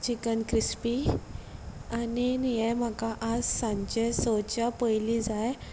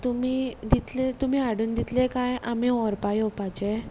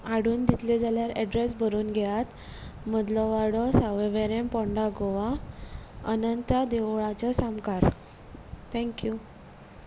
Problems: background sounds at intervals